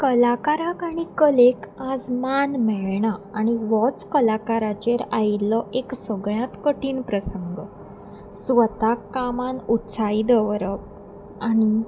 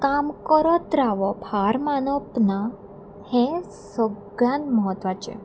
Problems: none marked